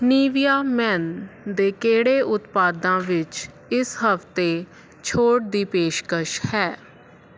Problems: constant background noise